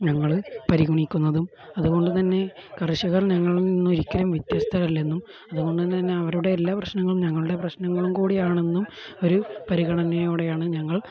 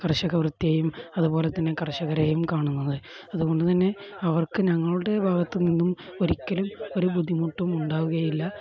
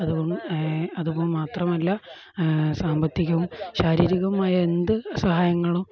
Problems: background conversations at intervals